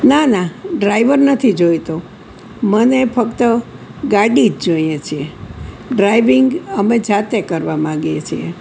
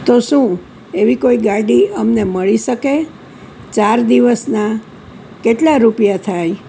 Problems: none marked